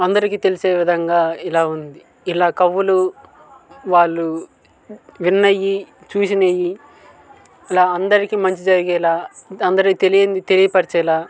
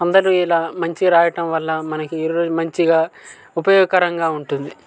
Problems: constant background noise, continuous background conversations